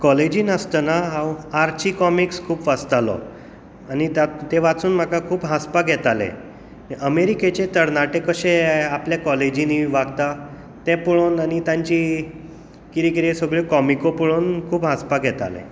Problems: background sounds at intervals